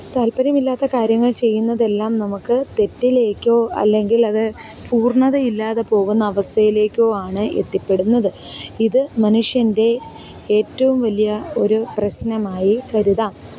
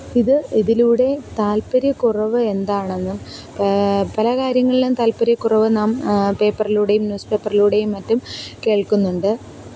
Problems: background sounds at intervals, continuous background conversations